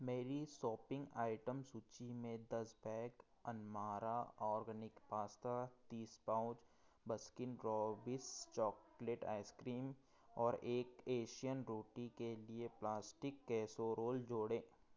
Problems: background sounds at intervals